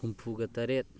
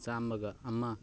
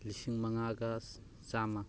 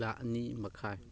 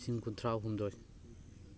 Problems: continuous background conversations